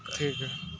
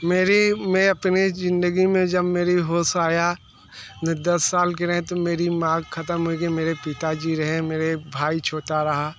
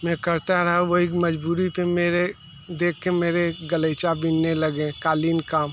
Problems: constant background noise